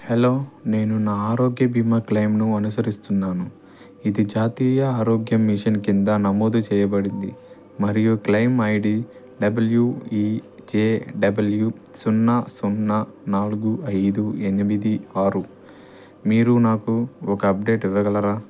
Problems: none marked